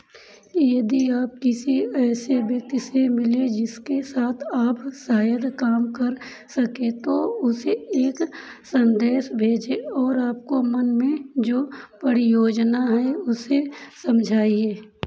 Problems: none marked